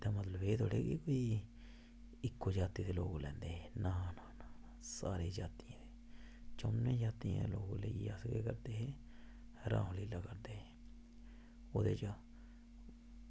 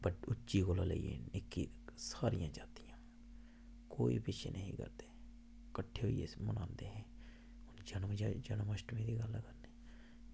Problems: constant background noise, low volume